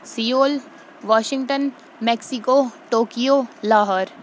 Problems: none marked